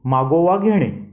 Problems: background sounds at intervals